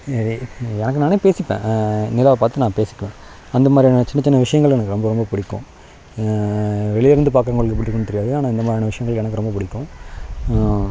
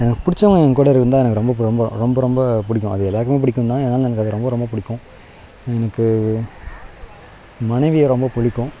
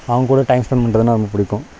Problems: background sounds at intervals